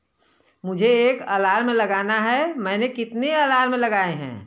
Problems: constant background noise